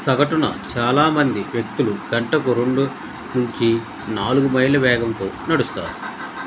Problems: constant background noise